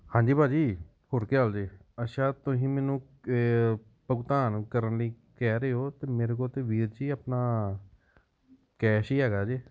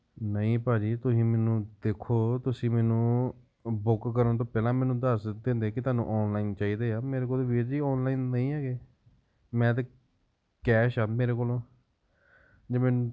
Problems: background sounds at intervals